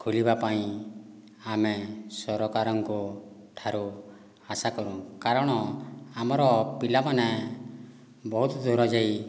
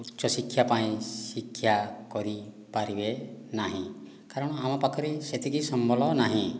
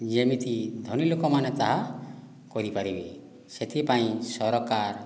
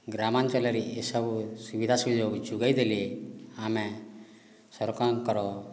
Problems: background sounds at intervals